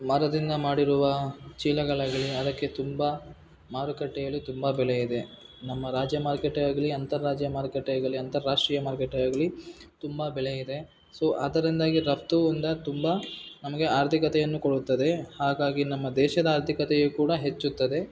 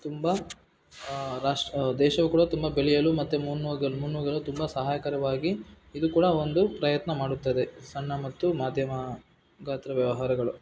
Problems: background sounds at intervals